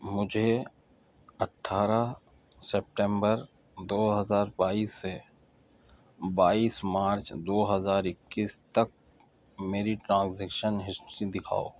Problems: none marked